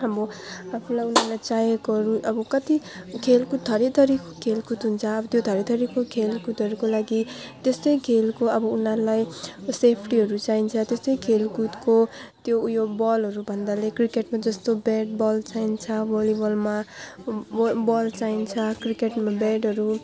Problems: constant background noise